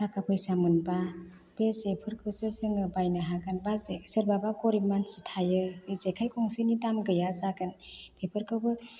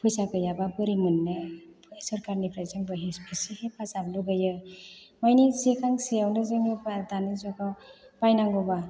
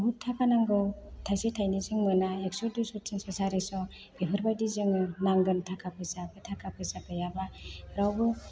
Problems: constant background noise